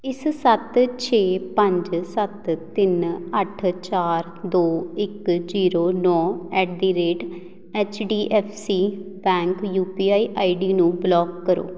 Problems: background sounds at intervals